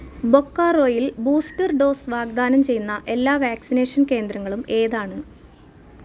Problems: none marked